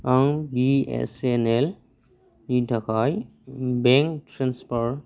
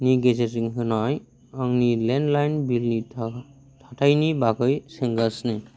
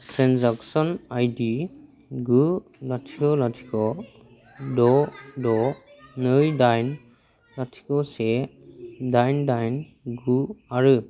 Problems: constant background noise